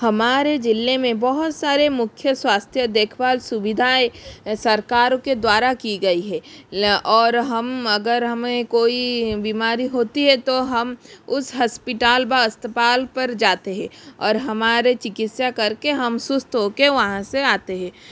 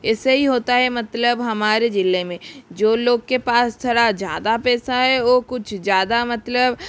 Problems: none marked